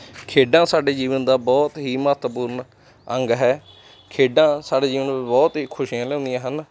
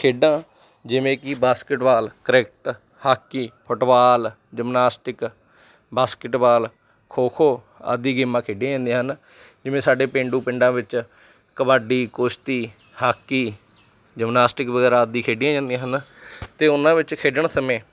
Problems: background sounds at intervals